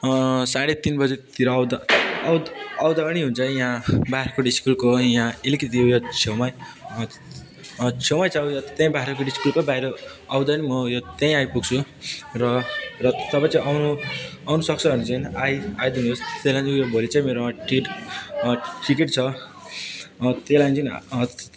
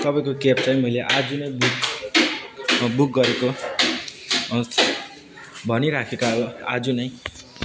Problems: constant background noise, continuous background conversations